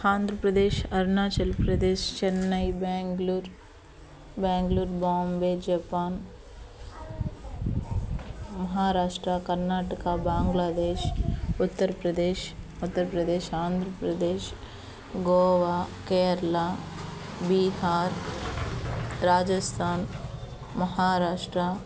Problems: constant background noise, continuous background conversations